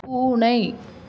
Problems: none marked